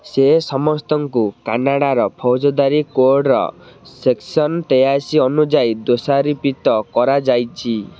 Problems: none marked